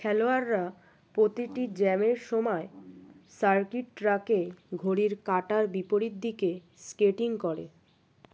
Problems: background sounds at intervals, background conversations at intervals